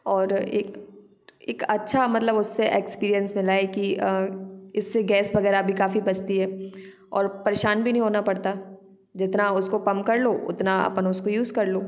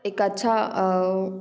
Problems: background sounds at intervals, background conversations at intervals